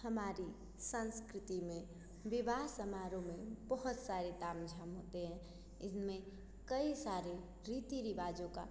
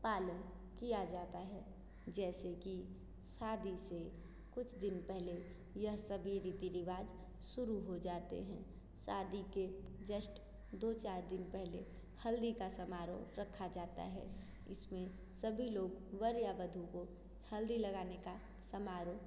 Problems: constant background noise, echo